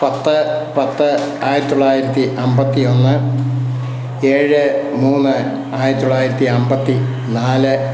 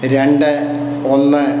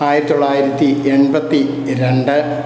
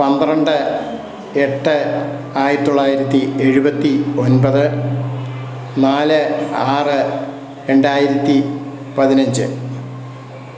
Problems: none marked